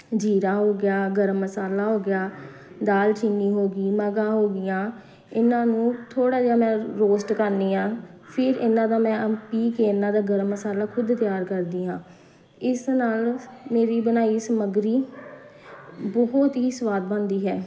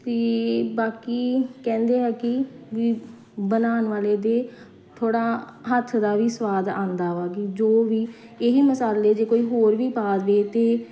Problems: constant background noise